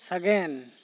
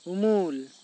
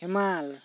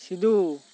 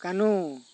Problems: none marked